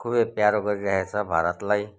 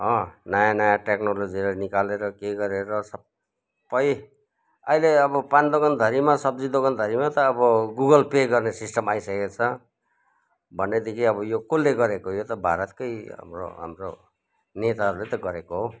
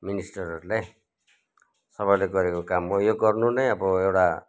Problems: background conversations at intervals